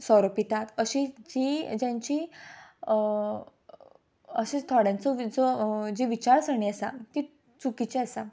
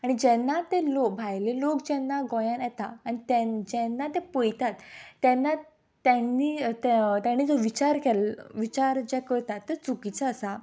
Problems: background sounds at intervals